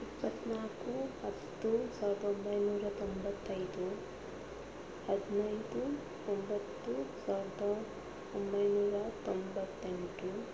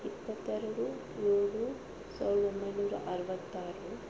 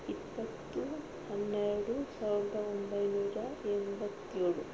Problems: constant background noise